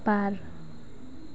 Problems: constant background noise